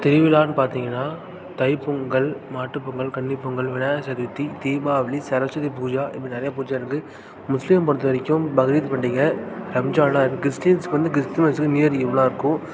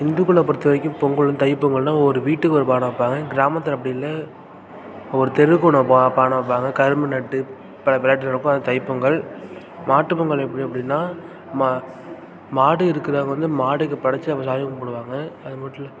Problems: none marked